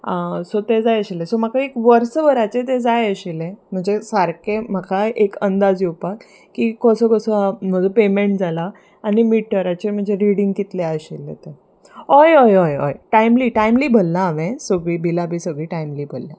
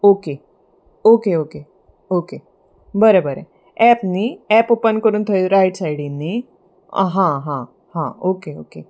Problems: none marked